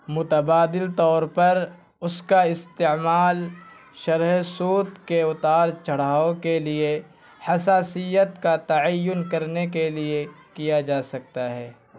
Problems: constant background noise